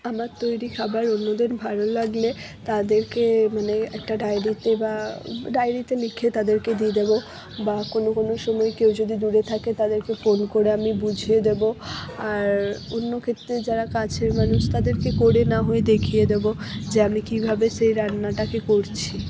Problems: none marked